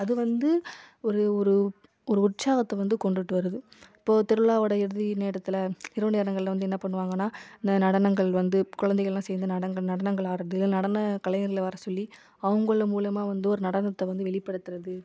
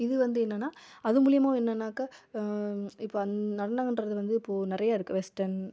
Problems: none marked